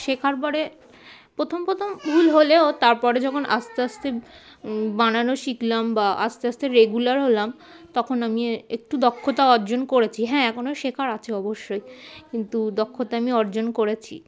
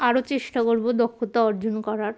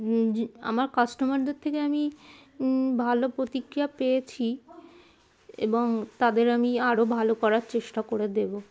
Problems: constant background noise, continuous background conversations